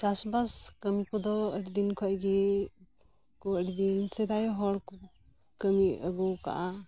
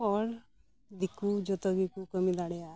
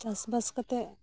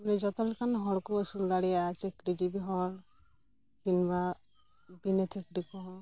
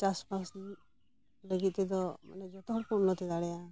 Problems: background sounds at intervals